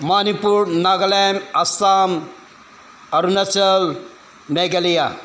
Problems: background sounds at intervals